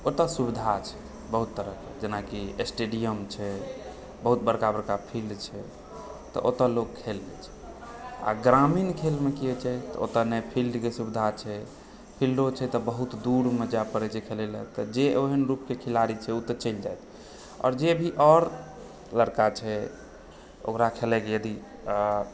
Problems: background sounds at intervals, background conversations at intervals